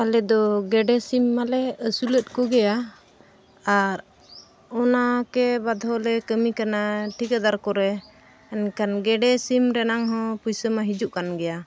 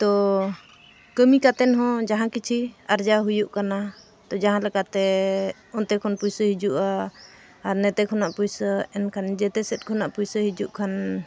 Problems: constant background noise